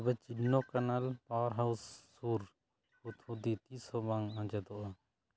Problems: background sounds at intervals